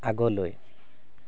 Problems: none marked